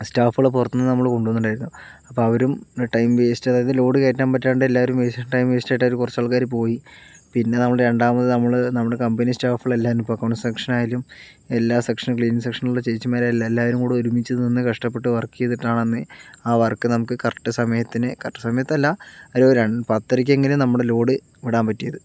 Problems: none marked